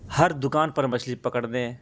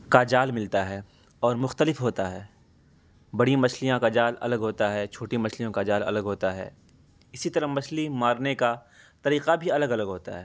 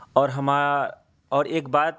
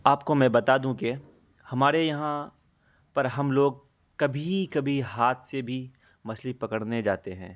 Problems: constant background noise